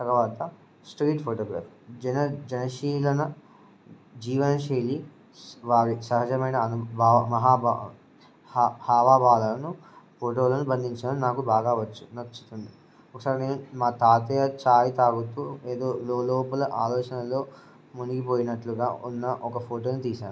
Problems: none marked